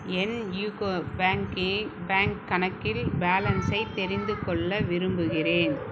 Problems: background conversations at intervals